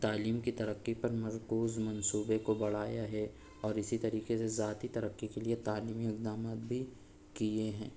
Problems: background sounds at intervals